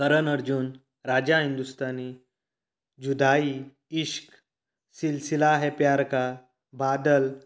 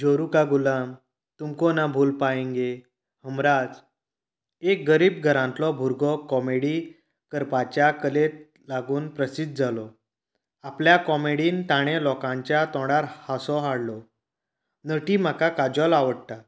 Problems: none marked